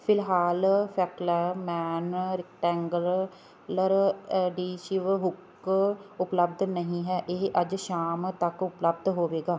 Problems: background sounds at intervals